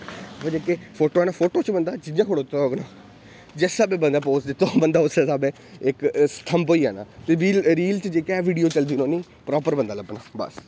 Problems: constant background noise